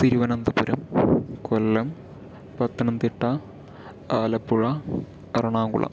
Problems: none marked